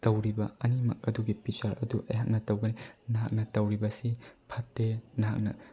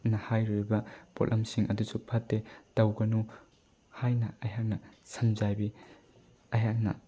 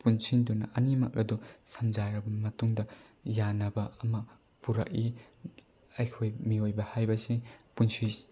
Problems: low volume